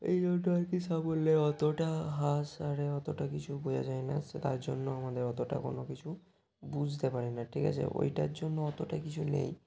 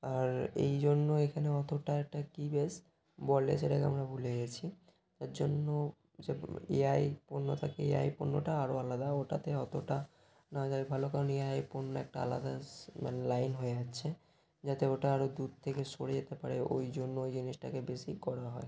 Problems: constant background noise